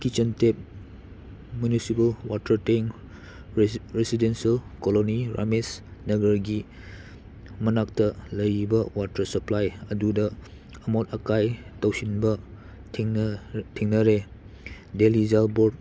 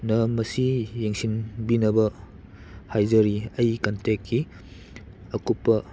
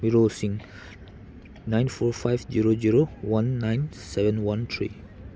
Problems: background sounds at intervals